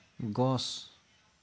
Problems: none marked